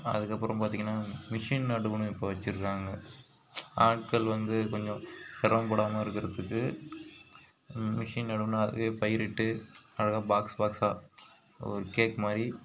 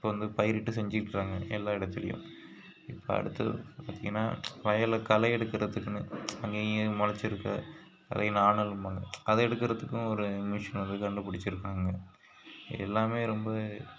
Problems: constant background noise